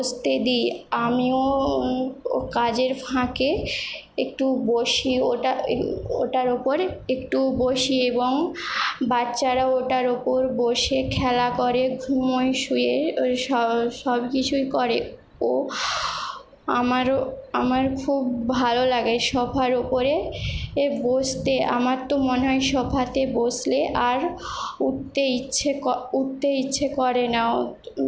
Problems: none marked